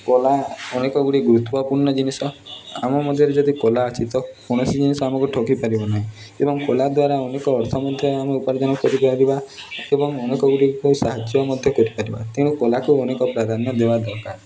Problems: continuous background conversations